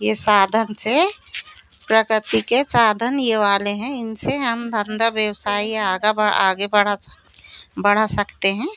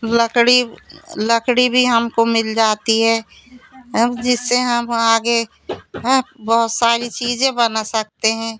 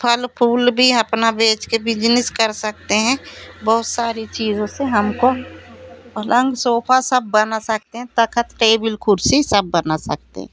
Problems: constant background noise, background conversations at intervals